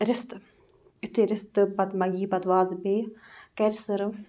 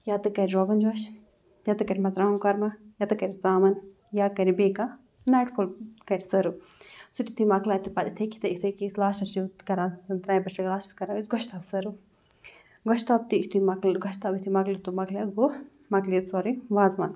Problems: none marked